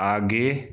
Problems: background sounds at intervals